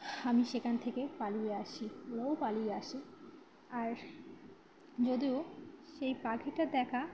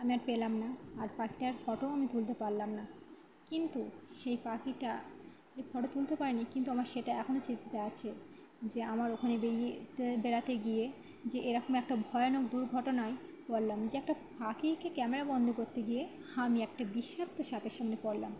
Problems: none marked